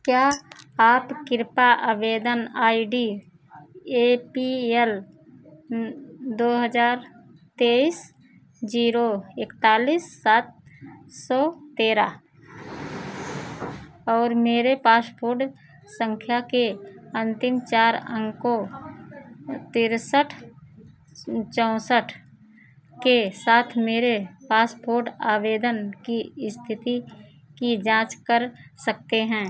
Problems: none marked